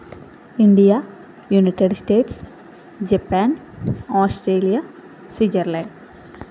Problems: none marked